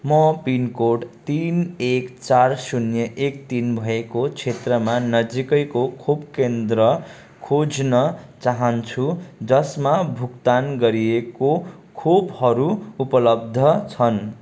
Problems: constant background noise